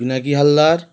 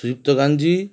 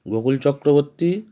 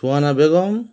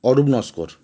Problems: none marked